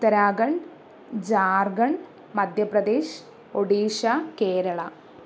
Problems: none marked